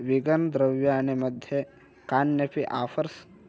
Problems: none marked